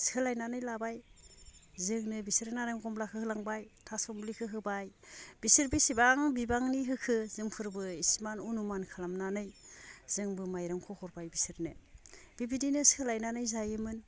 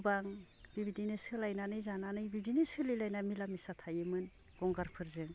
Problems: low volume